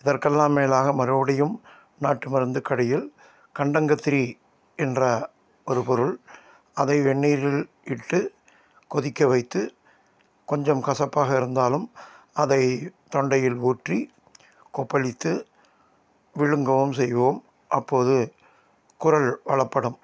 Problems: none marked